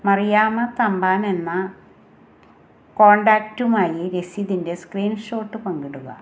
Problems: constant background noise